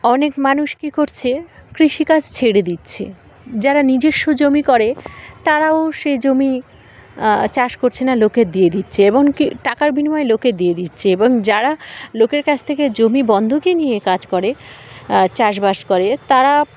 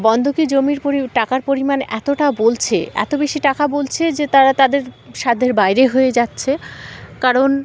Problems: constant background noise, continuous background conversations